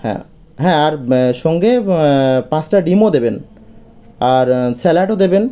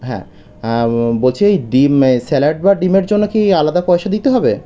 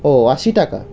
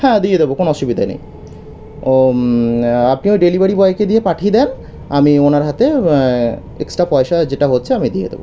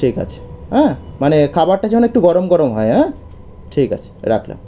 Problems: background sounds at intervals